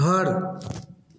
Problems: echo